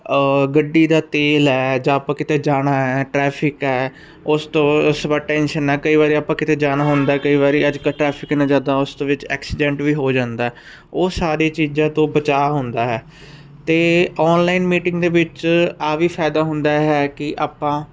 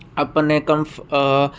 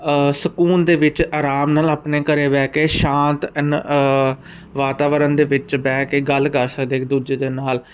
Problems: none marked